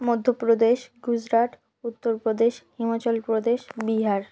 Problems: constant background noise